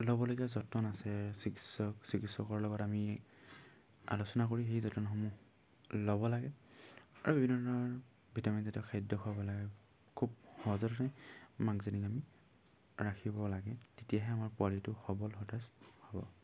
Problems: low volume